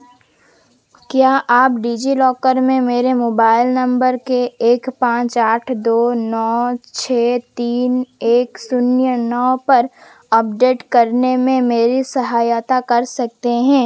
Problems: none marked